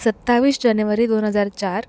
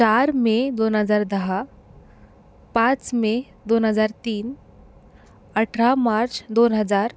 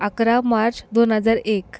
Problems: background sounds at intervals